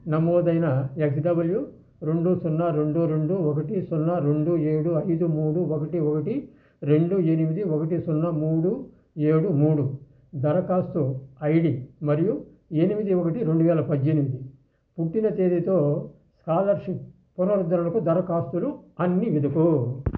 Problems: constant background noise